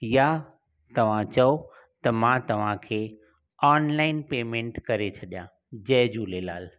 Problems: none marked